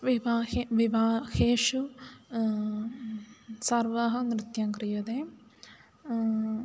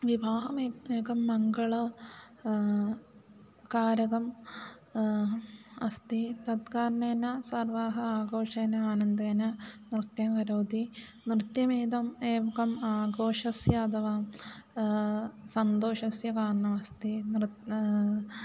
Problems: none marked